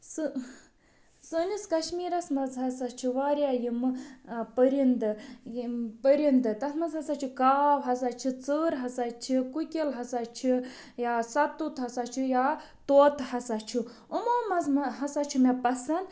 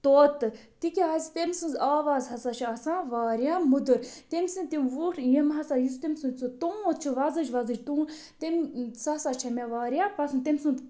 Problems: none marked